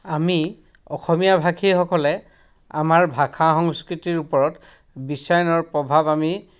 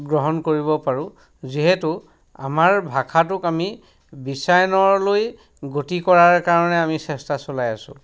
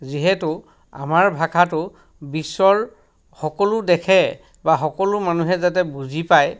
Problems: background sounds at intervals